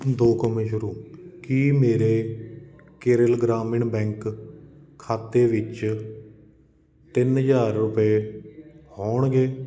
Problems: none marked